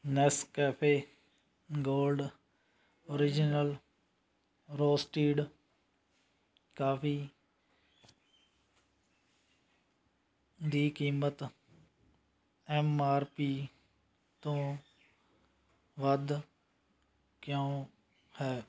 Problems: constant background noise